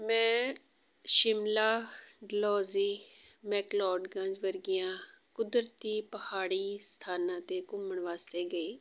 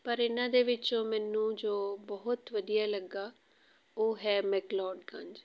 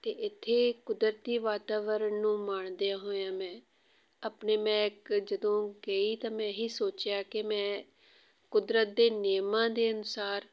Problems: none marked